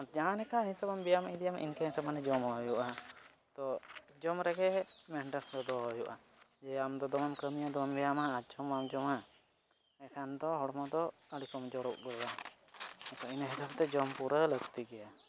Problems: none marked